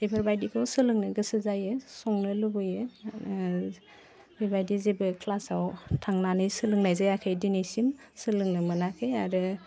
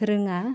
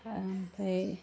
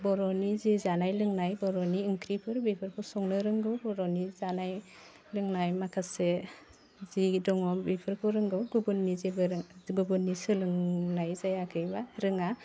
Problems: none marked